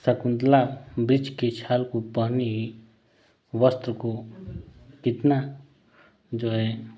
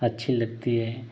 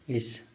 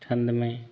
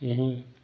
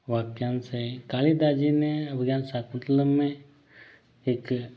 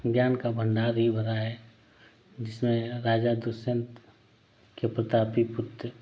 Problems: constant background noise